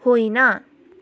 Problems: none marked